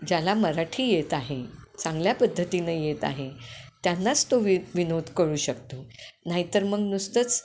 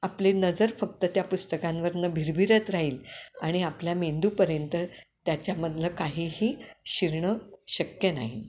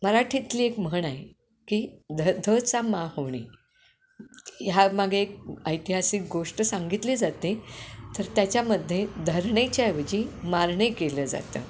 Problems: constant background noise